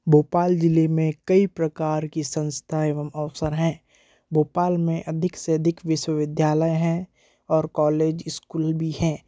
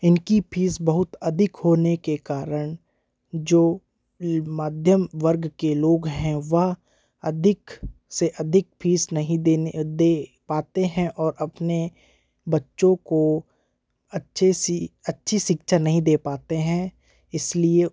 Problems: none marked